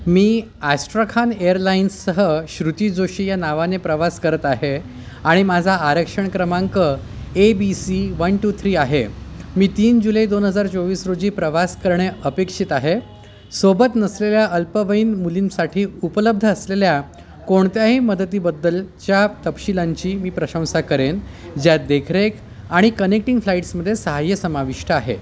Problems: background sounds at intervals, background conversations at intervals